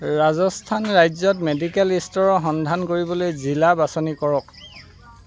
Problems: constant background noise